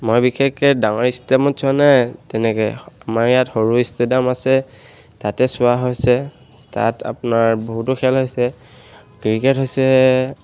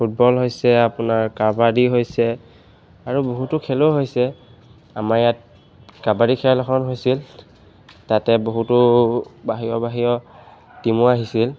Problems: background sounds at intervals